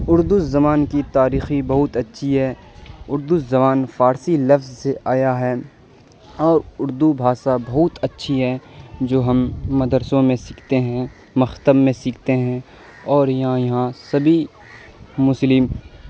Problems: constant background noise